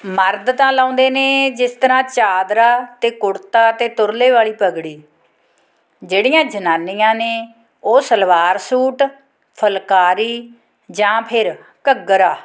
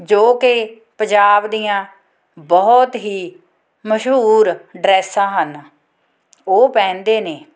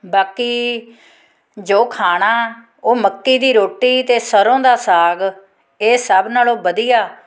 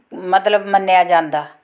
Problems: background sounds at intervals